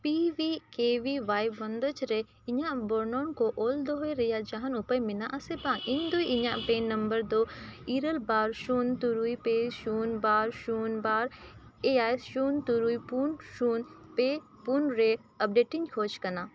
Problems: none marked